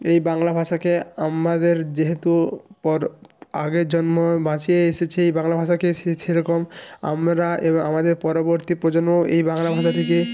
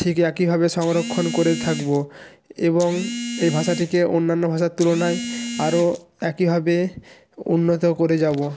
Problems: background sounds at intervals